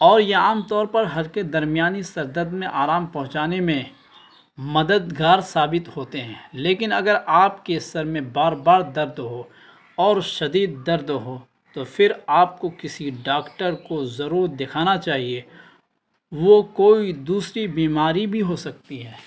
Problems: constant background noise